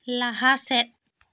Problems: none marked